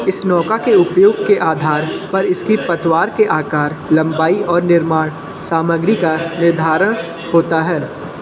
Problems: constant background noise, background conversations at intervals